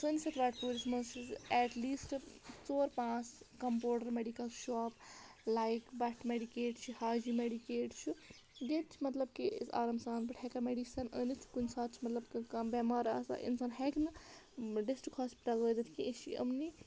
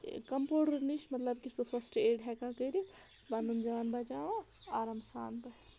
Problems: background sounds at intervals